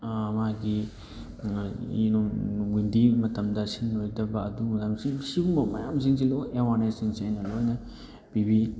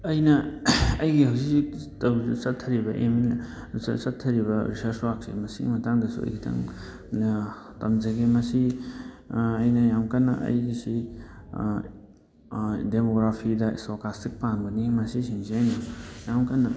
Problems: background sounds at intervals, background conversations at intervals